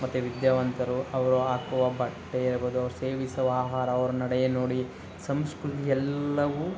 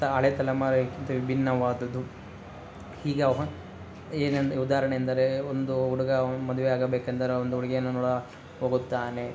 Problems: constant background noise